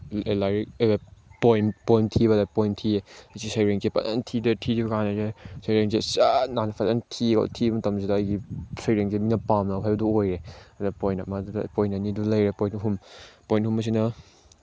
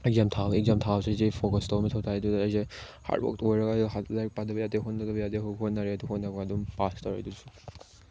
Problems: background sounds at intervals